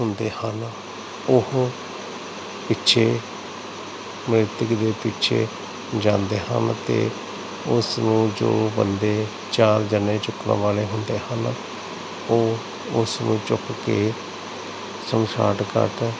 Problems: constant background noise